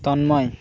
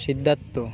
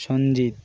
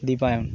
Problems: background sounds at intervals